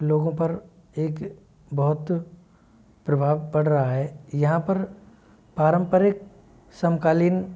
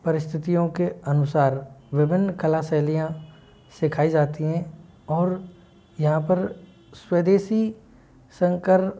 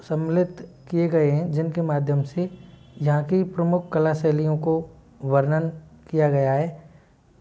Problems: background sounds at intervals